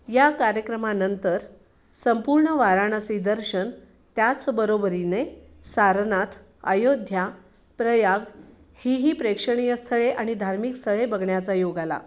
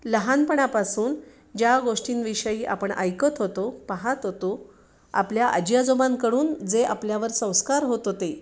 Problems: none marked